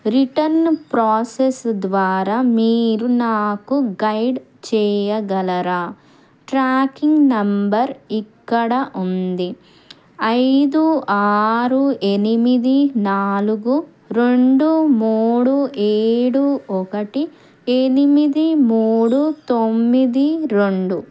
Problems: background sounds at intervals